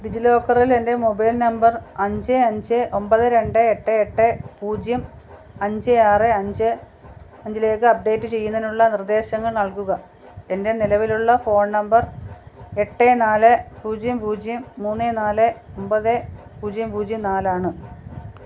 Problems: constant background noise, low volume